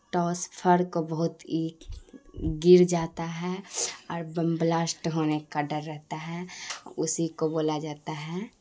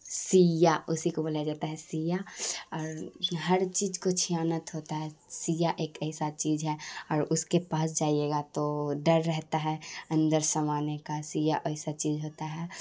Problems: constant background noise